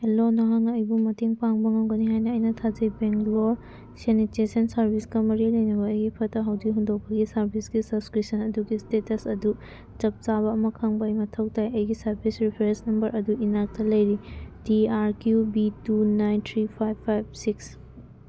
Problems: background sounds at intervals